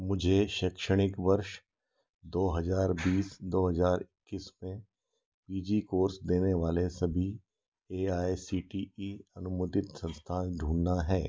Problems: background sounds at intervals